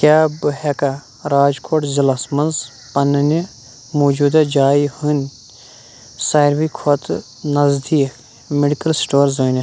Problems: background sounds at intervals